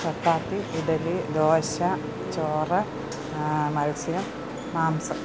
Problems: constant background noise